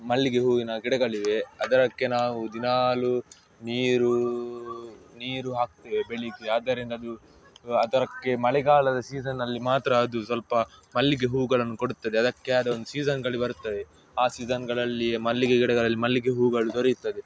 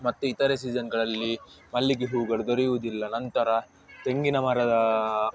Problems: background sounds at intervals